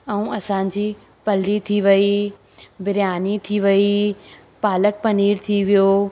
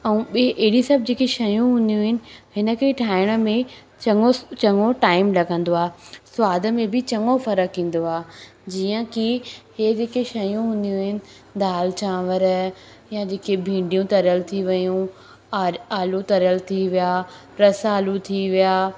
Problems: constant background noise, echo